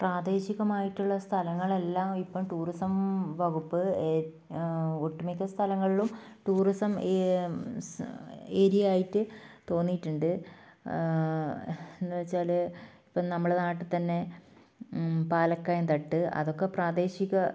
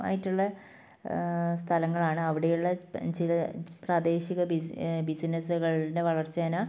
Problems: none marked